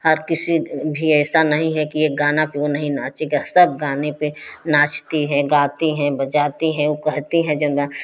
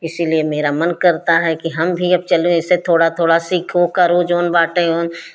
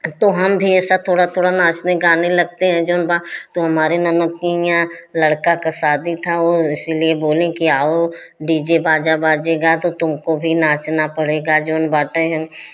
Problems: constant background noise